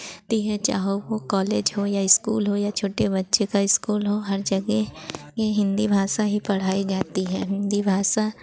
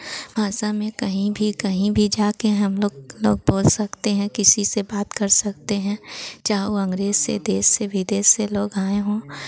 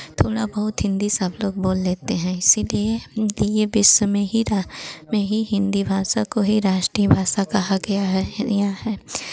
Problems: constant background noise